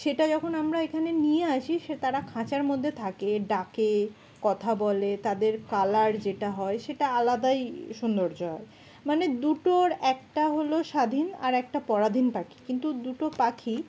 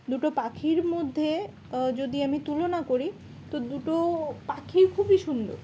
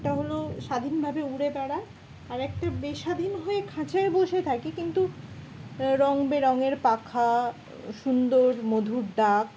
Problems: none marked